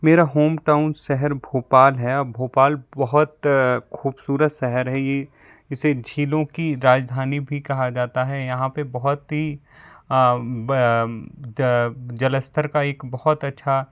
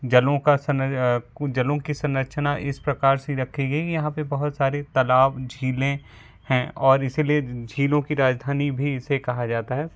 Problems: background sounds at intervals